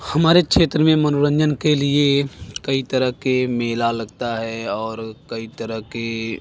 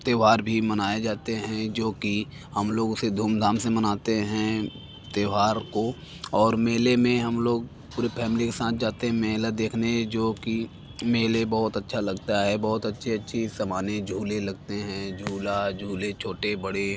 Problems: constant background noise